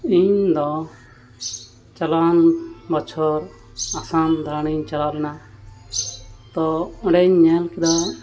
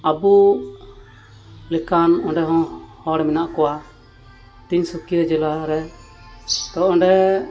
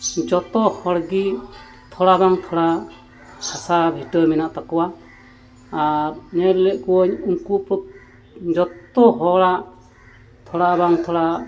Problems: constant background noise